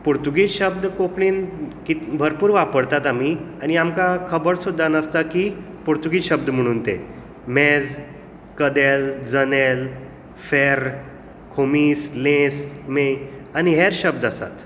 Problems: constant background noise